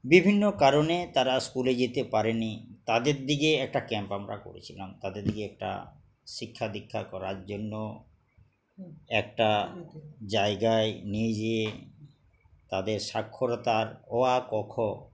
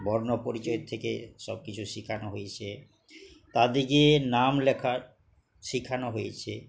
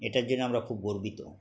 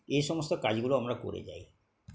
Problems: none marked